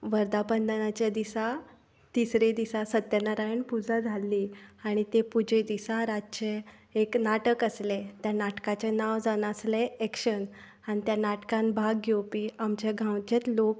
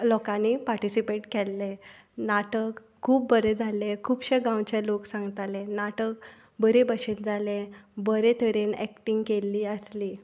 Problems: none marked